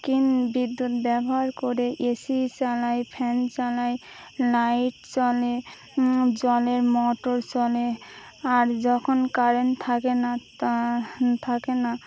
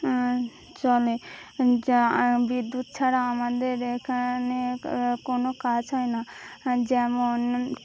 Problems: none marked